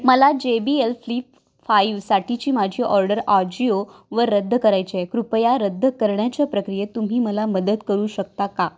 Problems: background sounds at intervals, background conversations at intervals